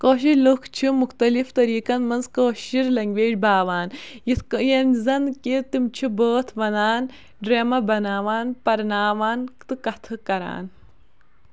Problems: none marked